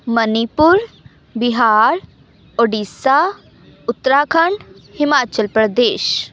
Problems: background conversations at intervals